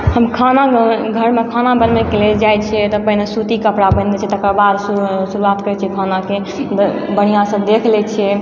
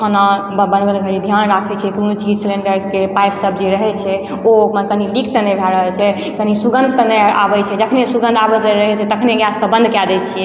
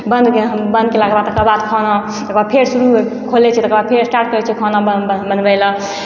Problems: background sounds at intervals, echo